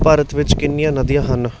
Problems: constant background noise